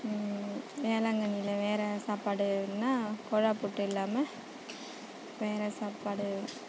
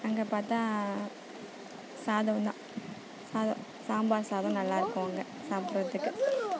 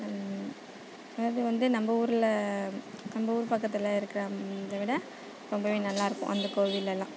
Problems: constant background noise, background conversations at intervals